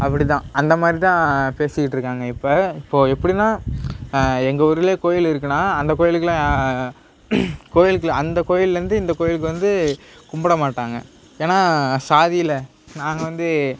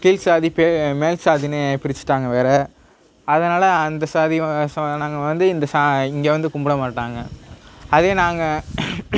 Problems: none marked